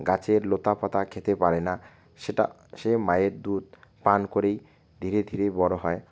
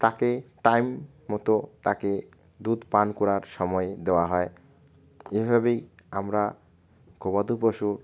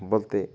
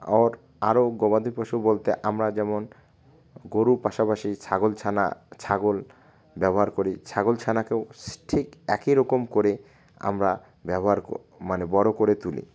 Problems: constant background noise